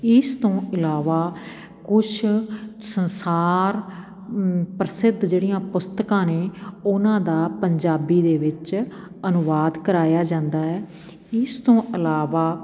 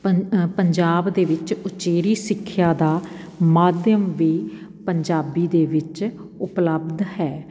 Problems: none marked